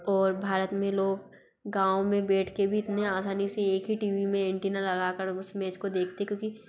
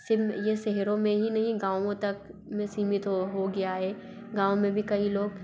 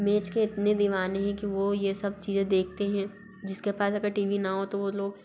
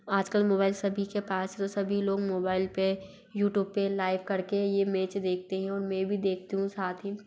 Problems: background sounds at intervals, background conversations at intervals